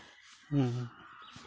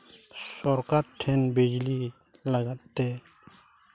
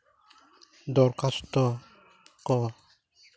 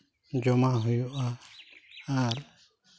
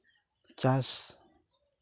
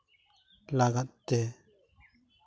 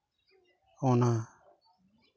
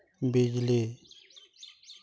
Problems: none marked